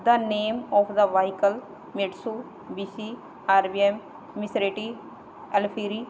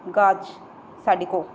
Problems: none marked